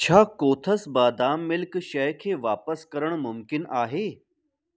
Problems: none marked